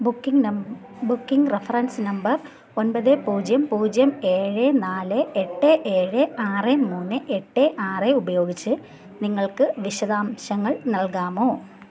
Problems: none marked